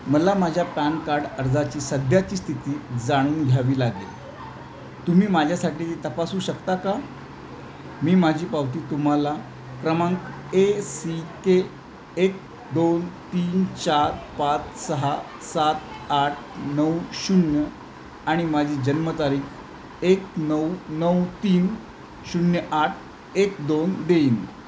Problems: constant background noise